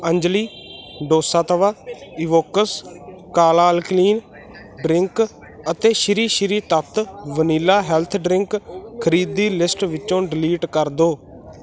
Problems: constant background noise